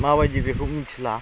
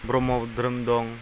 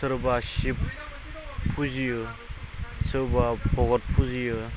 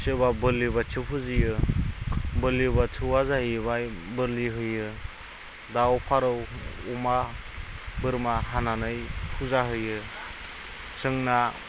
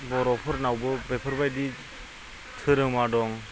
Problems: none marked